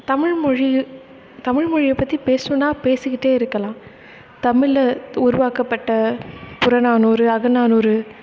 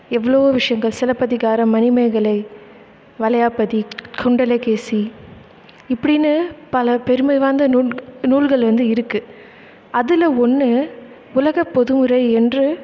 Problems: none marked